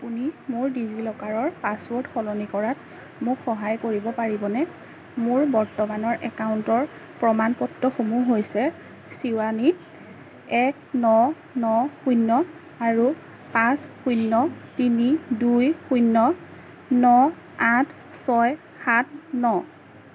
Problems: constant background noise